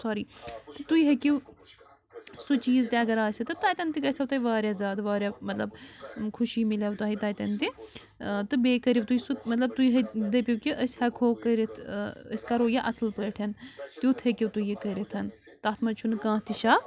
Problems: constant background noise